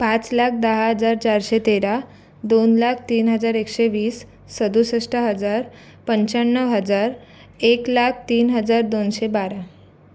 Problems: none marked